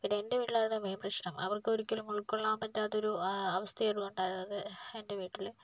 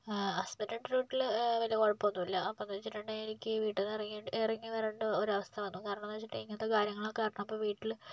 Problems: low volume